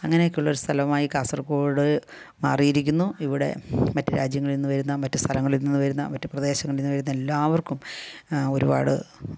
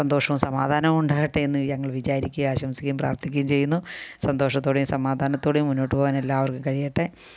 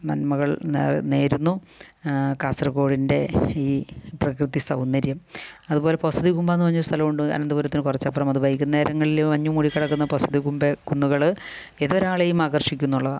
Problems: none marked